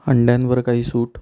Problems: none marked